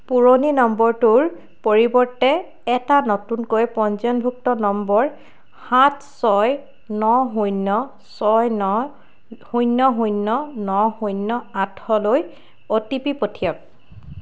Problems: none marked